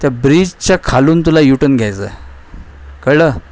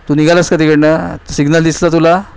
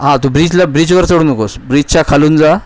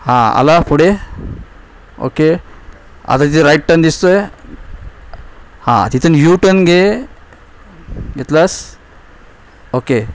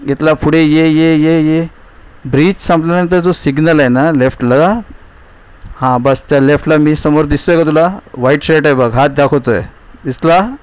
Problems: constant background noise